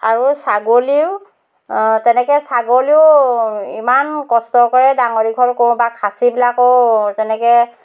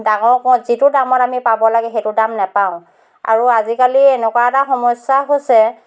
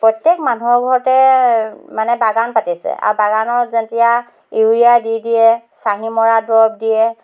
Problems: none marked